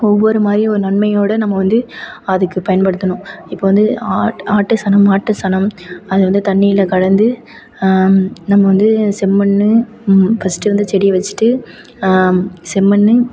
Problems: none marked